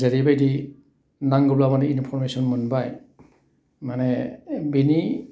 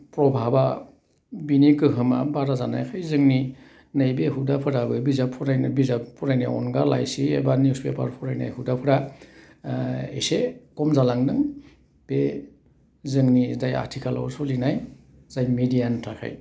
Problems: none marked